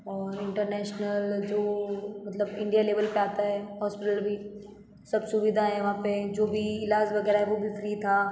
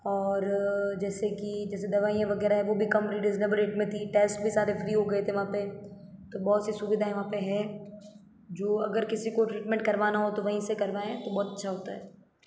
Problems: echo